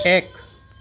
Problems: constant background noise